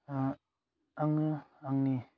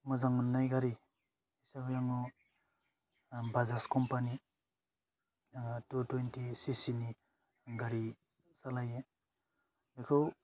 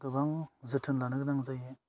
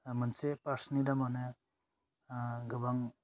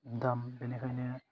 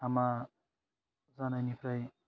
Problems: low volume